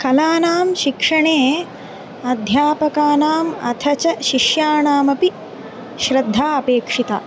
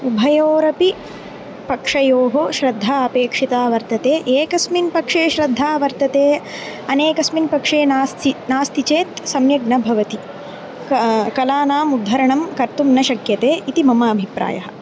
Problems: constant background noise